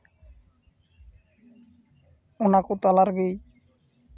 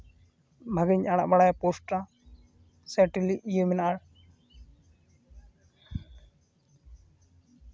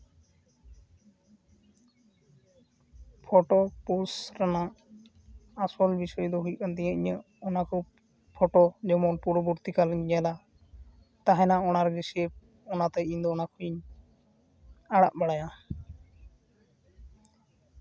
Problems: constant background noise